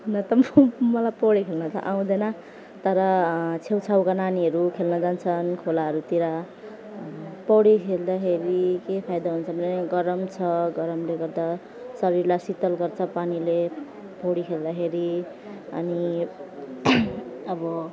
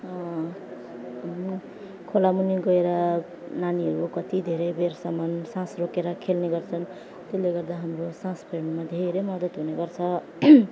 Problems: none marked